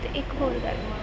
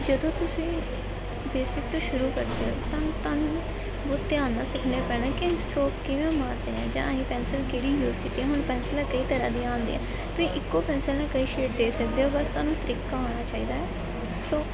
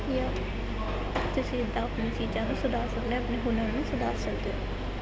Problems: constant background noise, continuous background conversations